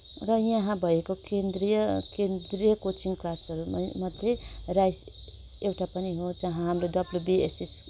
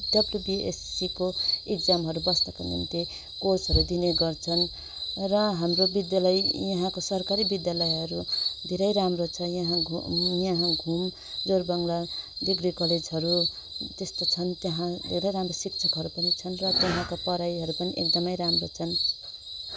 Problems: none marked